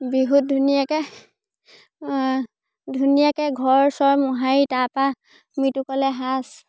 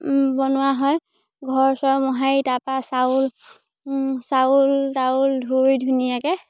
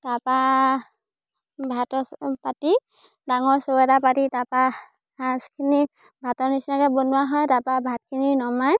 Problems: none marked